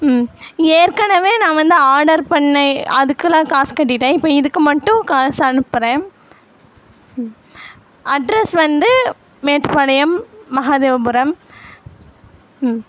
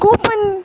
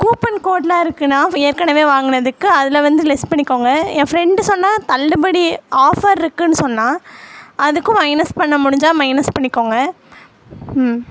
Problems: constant background noise